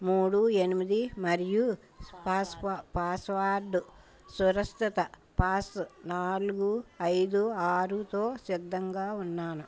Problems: background conversations at intervals